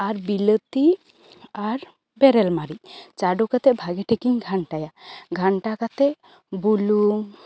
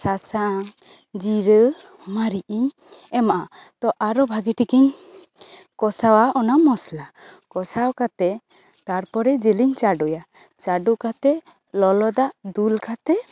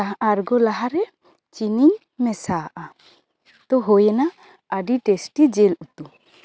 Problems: constant background noise, background conversations at intervals